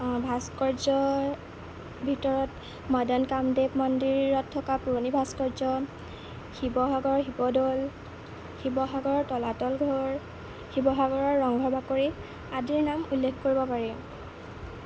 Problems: constant background noise